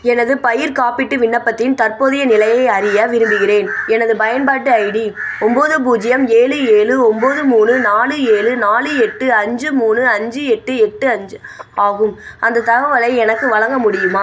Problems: constant background noise